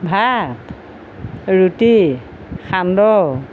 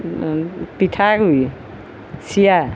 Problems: none marked